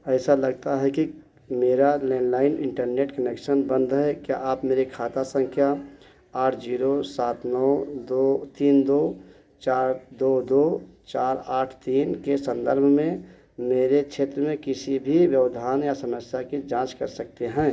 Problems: none marked